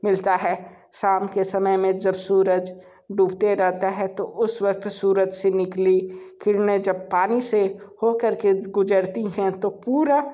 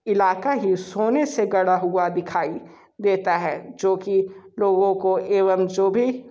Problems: none marked